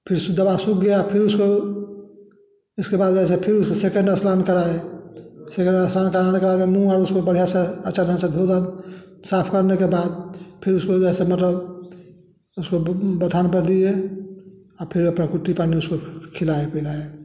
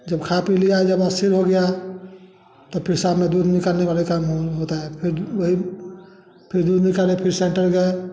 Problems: constant background noise, background conversations at intervals, echo